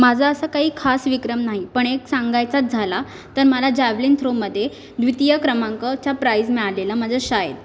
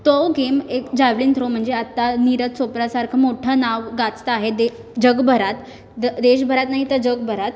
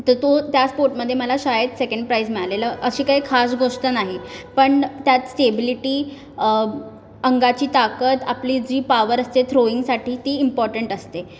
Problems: background sounds at intervals